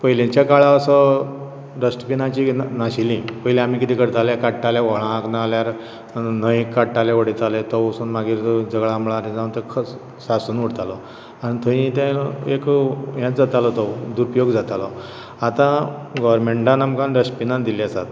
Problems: background sounds at intervals